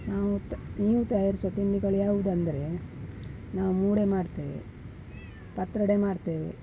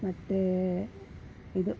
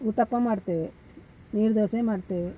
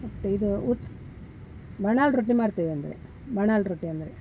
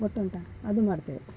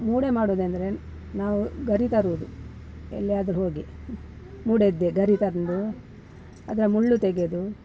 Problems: background sounds at intervals